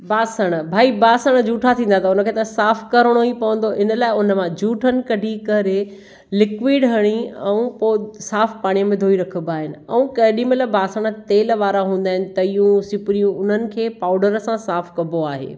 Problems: none marked